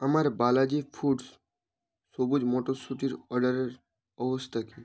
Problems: none marked